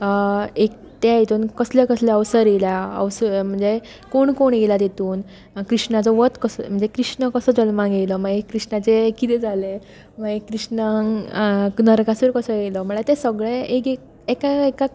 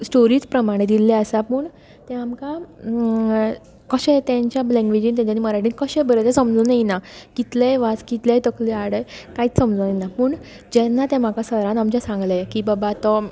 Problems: continuous background conversations